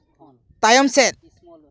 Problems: background sounds at intervals, background conversations at intervals